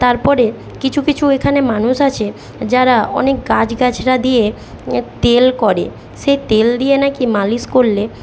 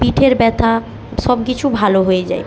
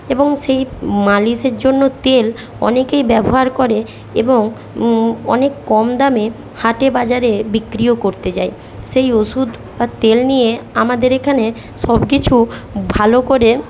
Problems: constant background noise